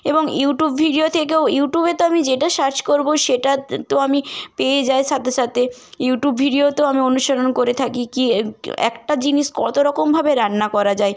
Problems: constant background noise